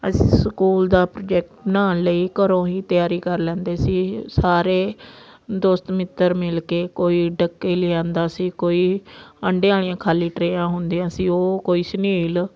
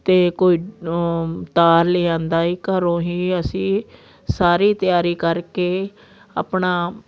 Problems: constant background noise